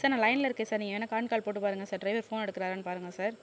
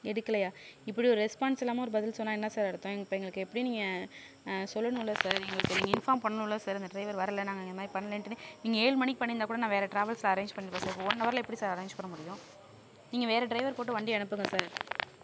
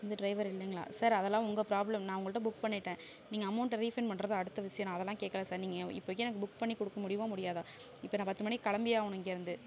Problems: none marked